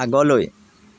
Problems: none marked